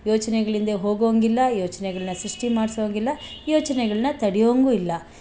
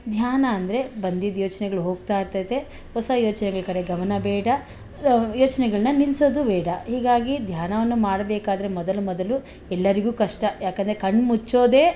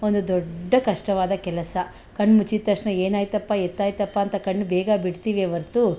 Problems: none marked